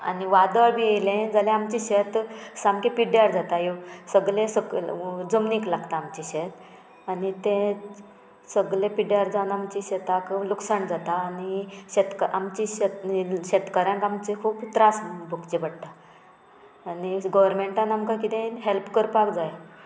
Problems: background sounds at intervals